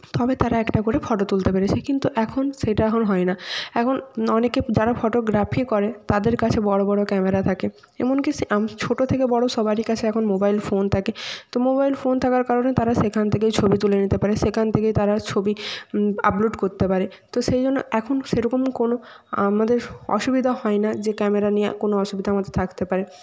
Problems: constant background noise